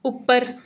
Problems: none marked